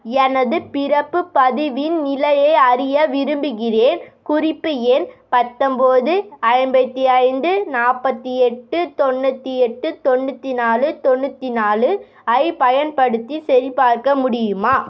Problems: none marked